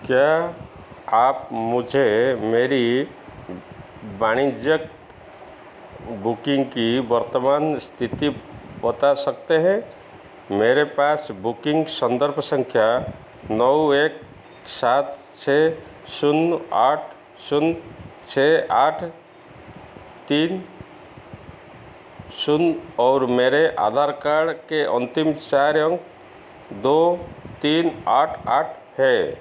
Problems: constant background noise, echo